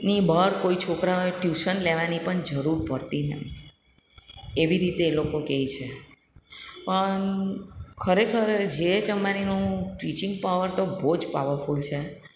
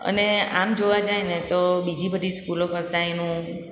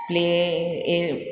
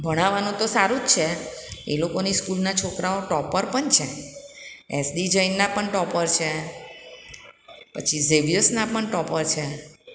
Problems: background sounds at intervals, echo